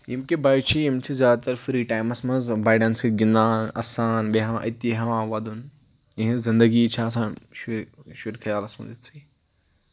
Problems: background sounds at intervals